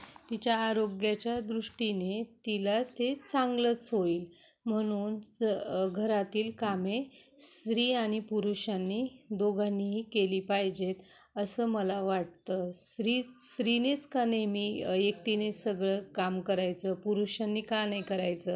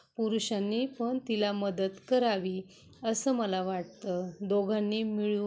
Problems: none marked